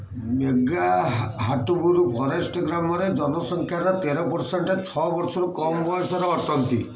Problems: constant background noise